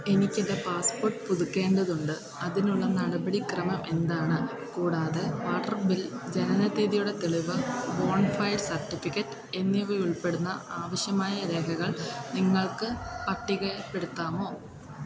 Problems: continuous background conversations